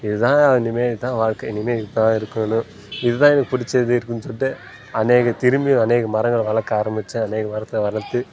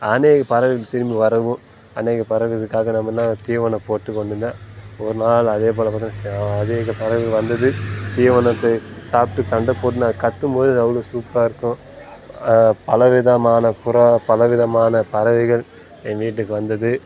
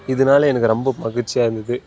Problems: constant background noise